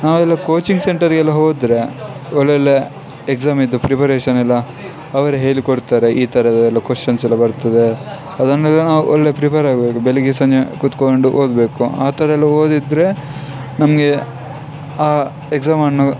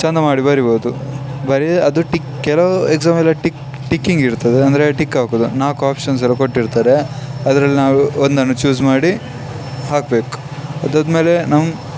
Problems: background sounds at intervals